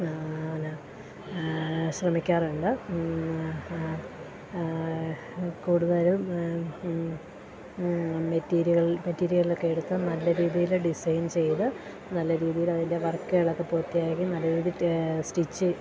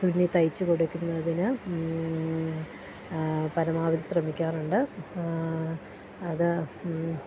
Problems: constant background noise